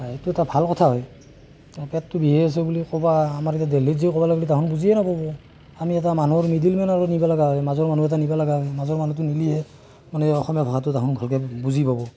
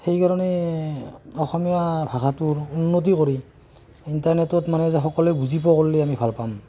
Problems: constant background noise